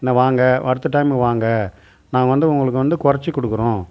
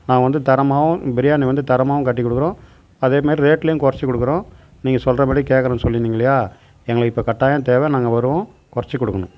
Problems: none marked